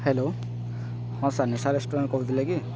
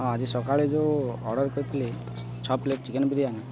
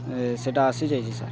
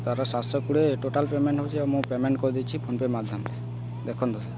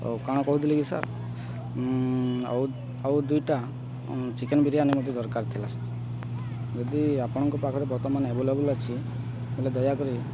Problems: constant background noise